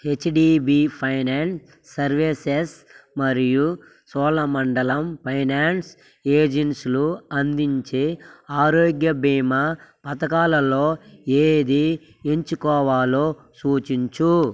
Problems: constant background noise